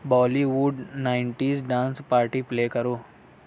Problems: constant background noise